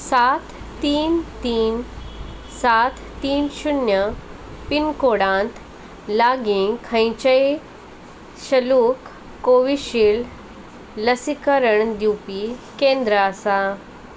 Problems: constant background noise